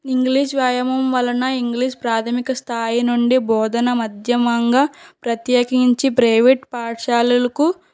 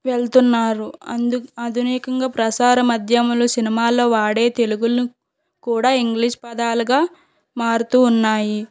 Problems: background sounds at intervals